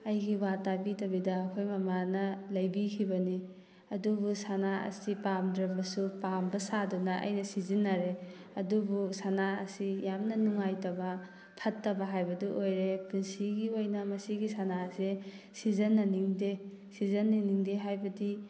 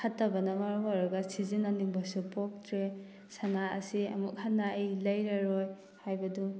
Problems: background sounds at intervals